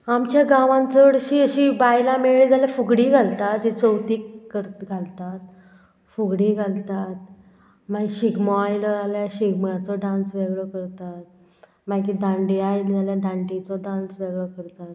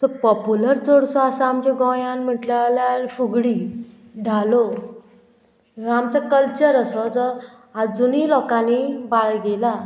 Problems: none marked